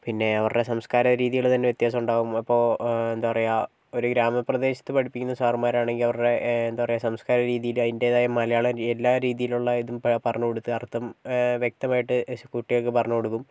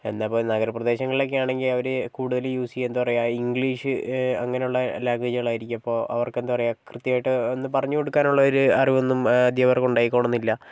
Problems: none marked